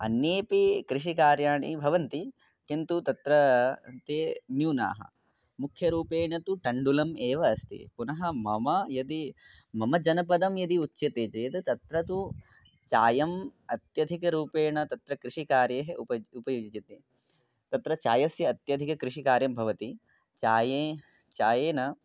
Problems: none marked